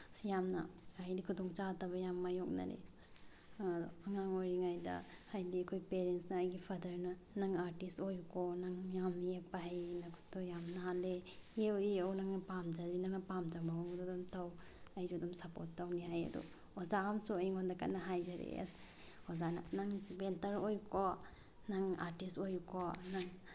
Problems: none marked